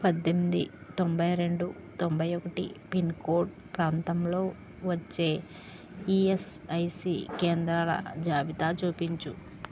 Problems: background sounds at intervals